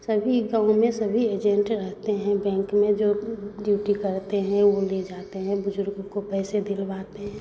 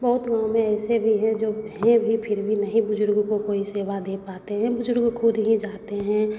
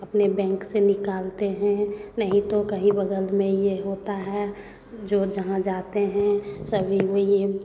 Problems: constant background noise, background conversations at intervals